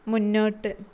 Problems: none marked